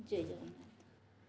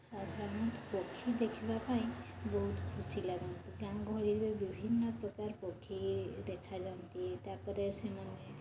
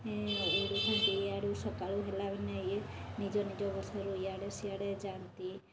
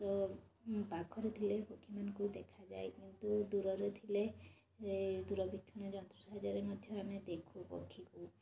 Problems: constant background noise, continuous background conversations